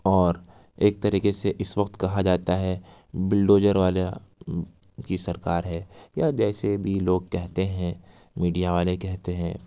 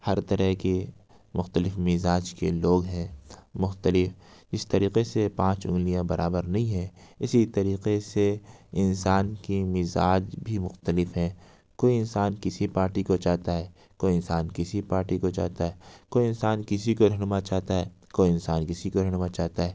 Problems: none marked